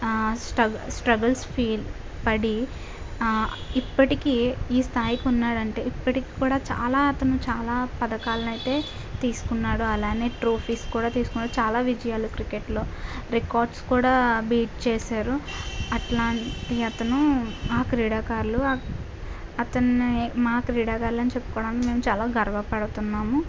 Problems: constant background noise